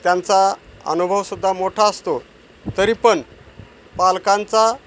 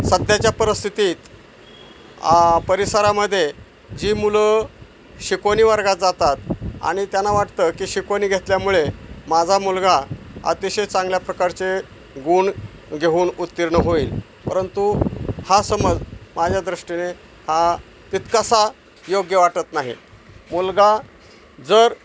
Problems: none marked